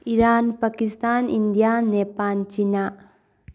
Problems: none marked